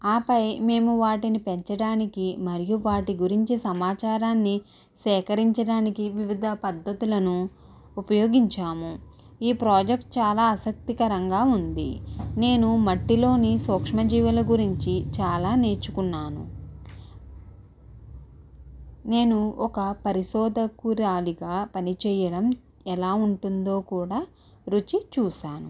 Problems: background sounds at intervals